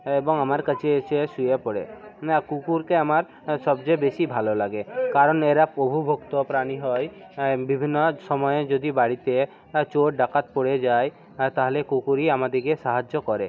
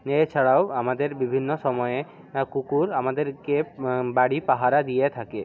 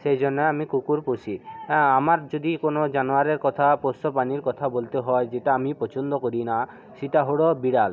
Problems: continuous background conversations